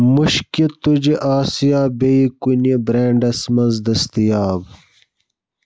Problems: none marked